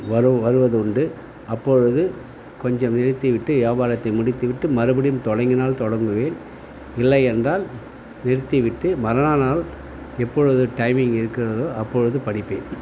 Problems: none marked